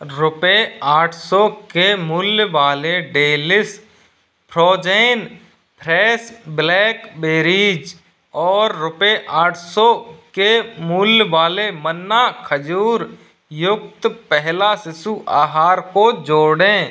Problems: background sounds at intervals